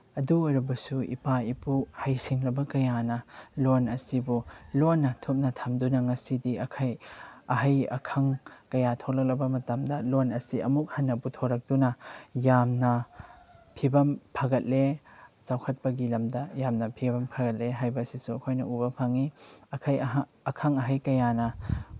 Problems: none marked